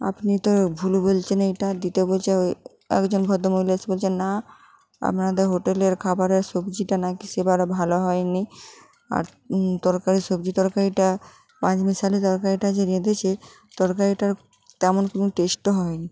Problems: continuous background conversations